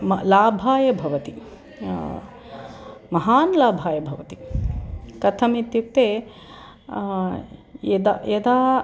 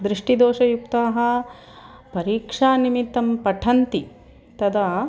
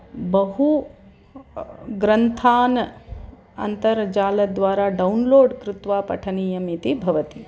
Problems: none marked